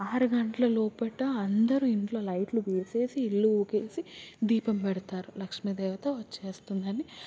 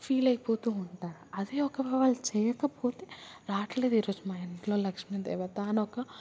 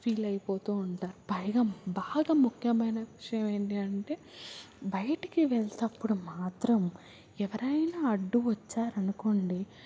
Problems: constant background noise